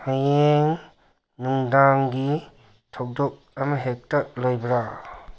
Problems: background sounds at intervals